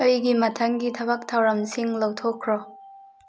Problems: constant background noise